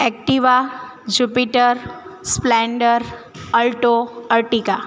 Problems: constant background noise